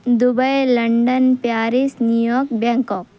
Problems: none marked